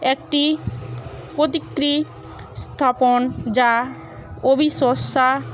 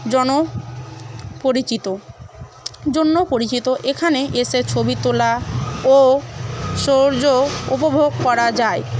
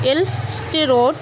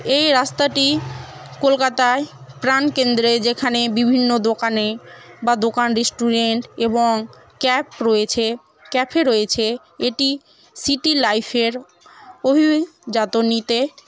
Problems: constant background noise, continuous background conversations